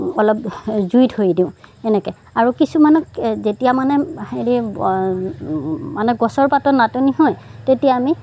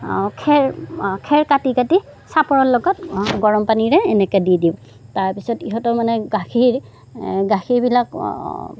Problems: background sounds at intervals, background conversations at intervals